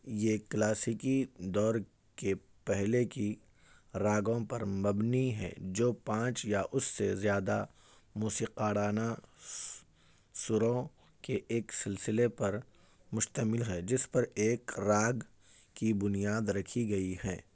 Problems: background conversations at intervals